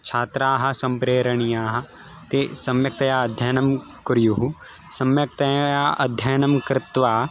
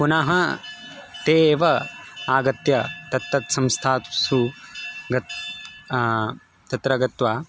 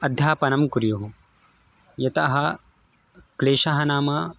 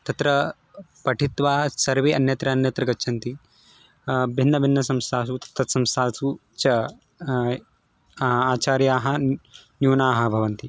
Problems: background sounds at intervals